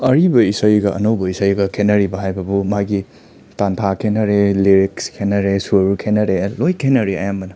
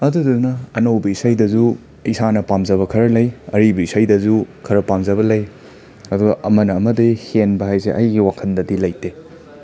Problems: background sounds at intervals, background conversations at intervals